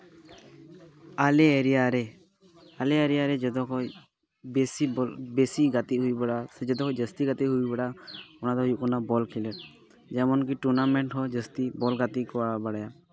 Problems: background sounds at intervals, continuous background conversations